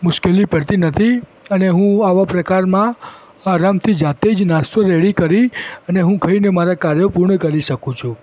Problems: constant background noise